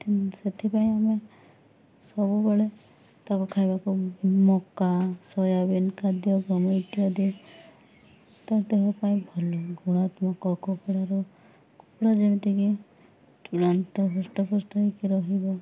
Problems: none marked